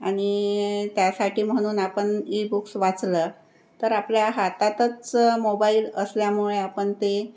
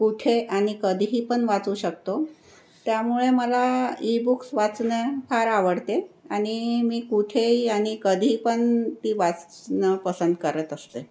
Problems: none marked